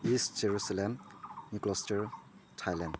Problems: low volume